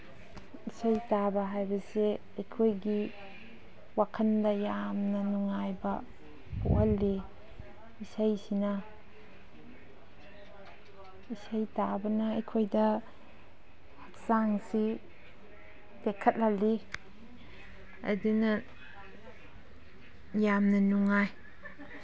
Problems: background sounds at intervals